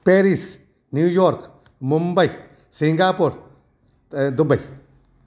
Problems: none marked